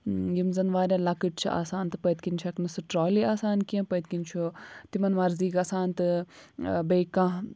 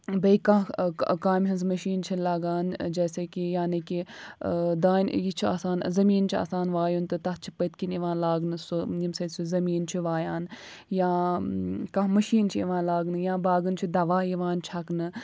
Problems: none marked